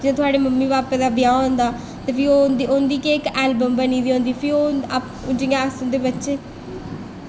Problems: constant background noise, echo